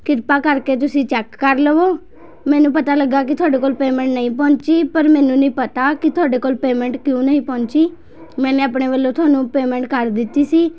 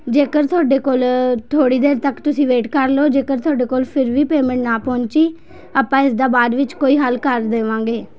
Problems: constant background noise, background conversations at intervals